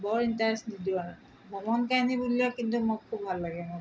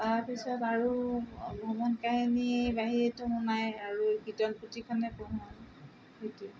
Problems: none marked